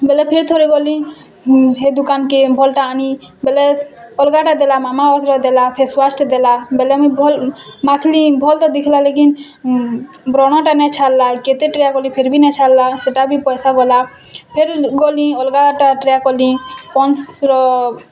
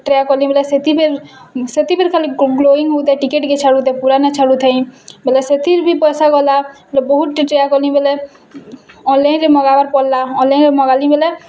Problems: constant background noise